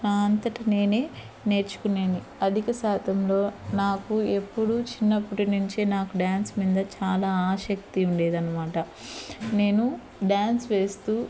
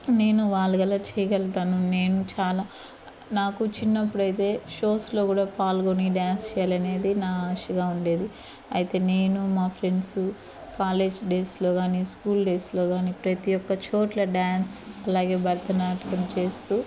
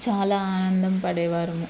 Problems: none marked